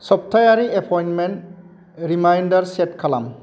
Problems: none marked